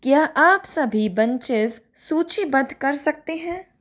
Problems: none marked